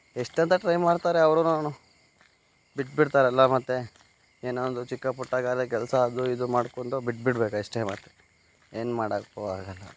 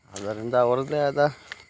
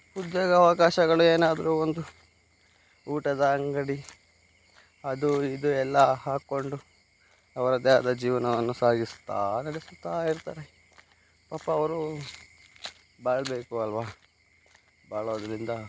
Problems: background sounds at intervals